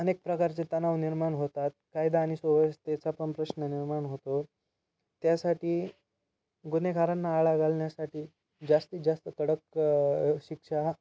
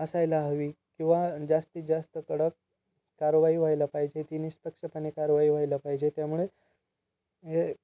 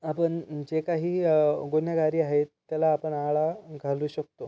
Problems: constant background noise